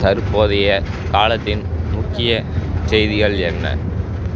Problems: constant background noise